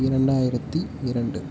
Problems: constant background noise, low volume